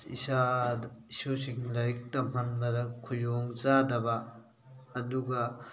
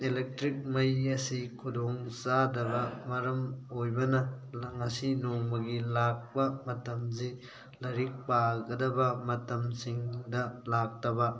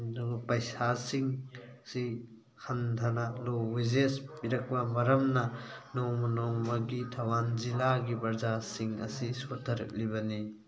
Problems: constant background noise, background conversations at intervals